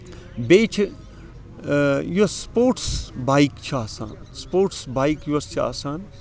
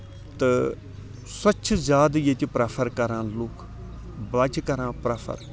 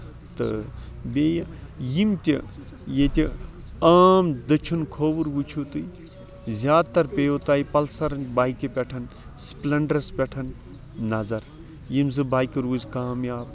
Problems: constant background noise, background conversations at intervals